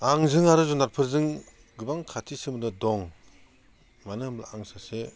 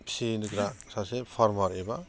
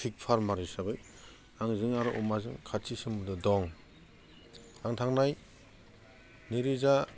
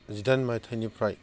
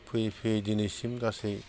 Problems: constant background noise